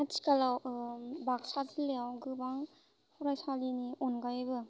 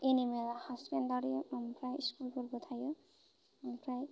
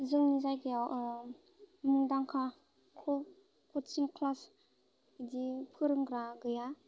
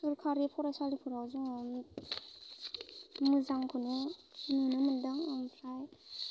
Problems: none marked